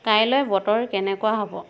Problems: constant background noise